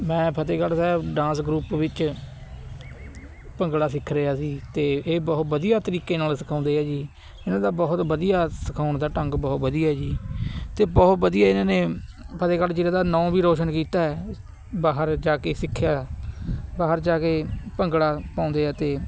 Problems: constant background noise